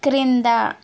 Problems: constant background noise